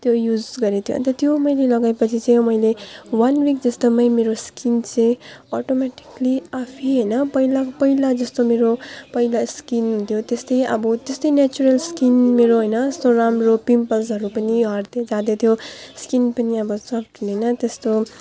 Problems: none marked